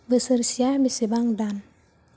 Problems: low volume